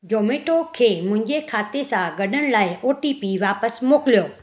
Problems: none marked